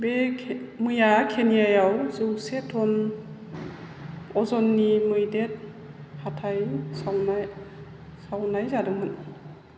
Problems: none marked